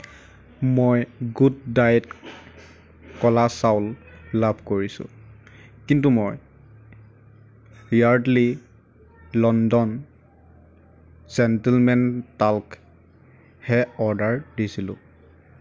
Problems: background sounds at intervals